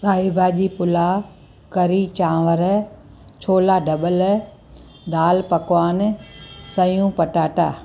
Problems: constant background noise, echo